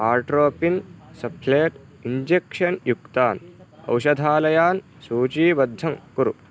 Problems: constant background noise